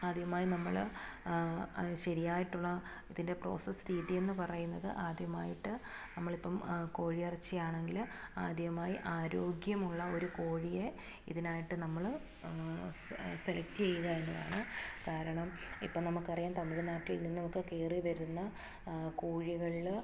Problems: low volume